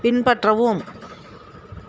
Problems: constant background noise